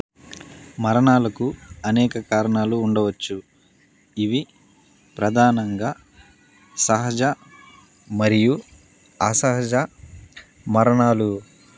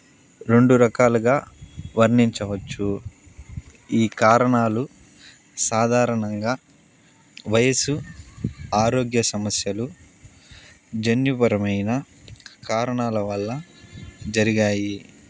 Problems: none marked